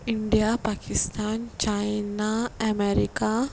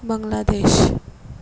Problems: background sounds at intervals